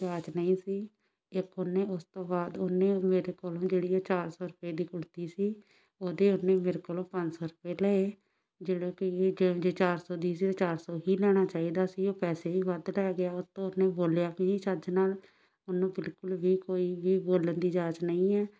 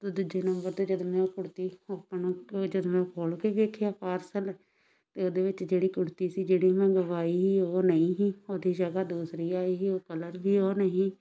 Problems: none marked